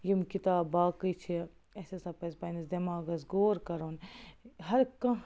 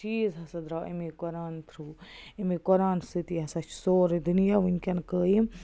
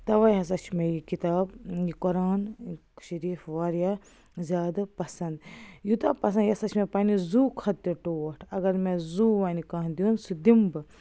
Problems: constant background noise